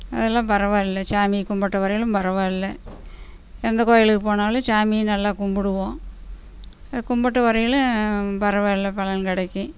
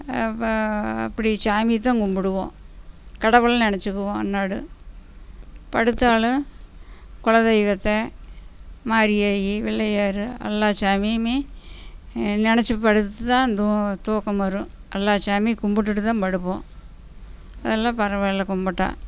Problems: background sounds at intervals, background conversations at intervals